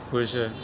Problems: none marked